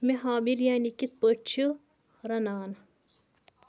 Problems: none marked